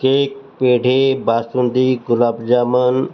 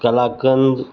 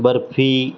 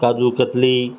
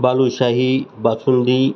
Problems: constant background noise